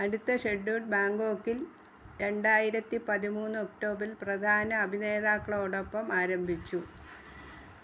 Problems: none marked